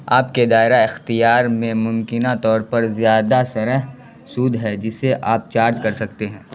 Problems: constant background noise